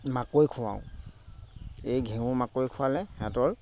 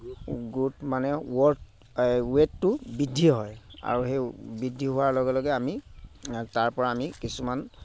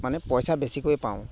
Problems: constant background noise